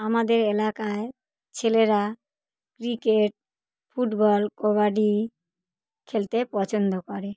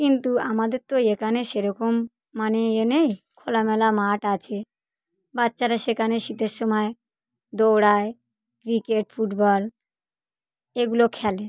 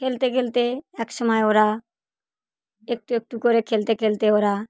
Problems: none marked